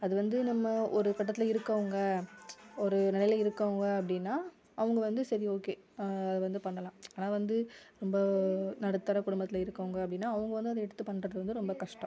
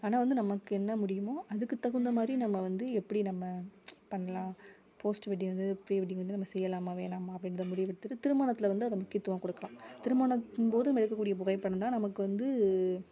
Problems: background conversations at intervals